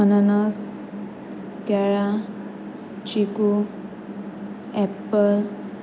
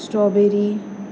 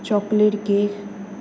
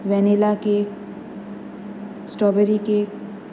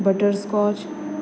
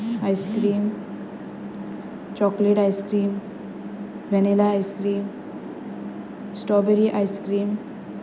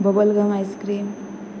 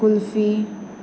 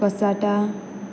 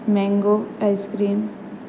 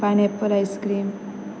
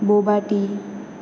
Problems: constant background noise